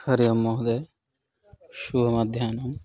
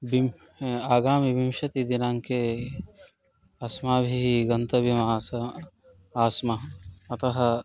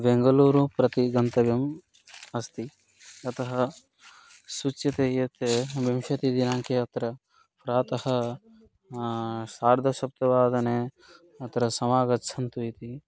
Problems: constant background noise